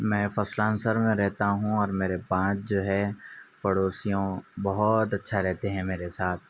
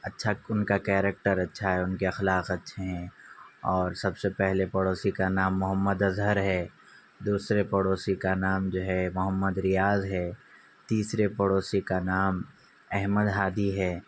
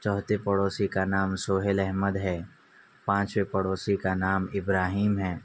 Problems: none marked